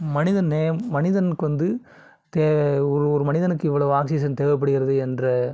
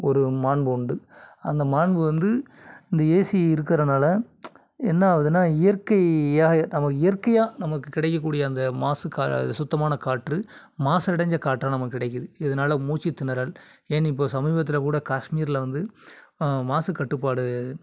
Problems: none marked